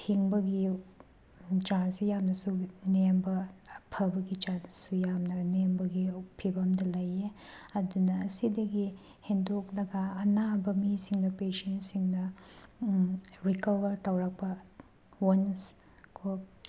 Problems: none marked